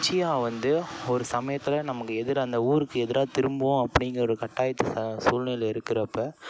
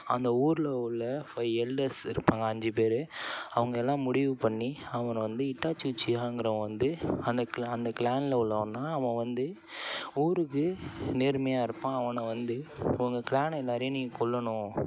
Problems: background sounds at intervals, background conversations at intervals